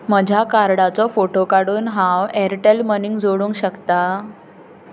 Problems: background conversations at intervals